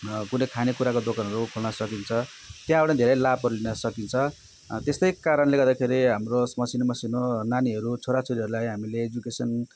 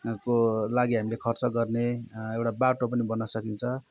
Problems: background sounds at intervals